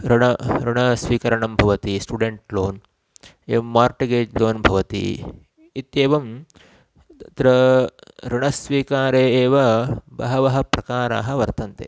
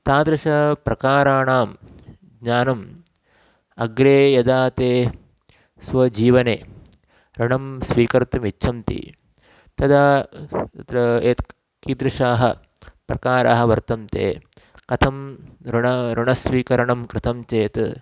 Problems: constant background noise